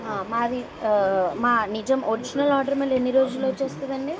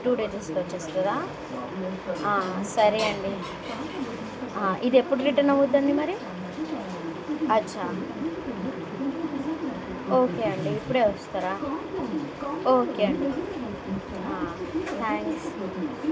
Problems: constant background noise